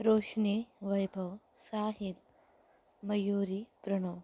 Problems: none marked